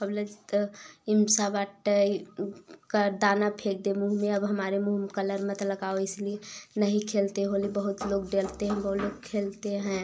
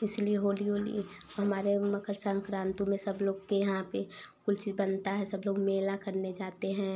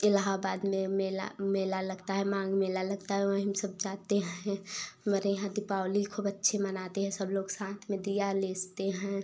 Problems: background sounds at intervals